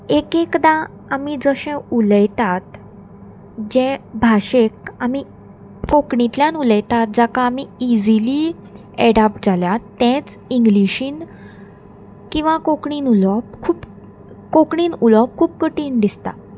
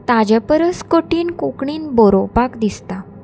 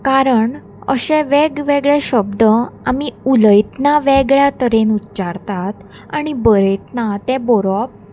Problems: constant background noise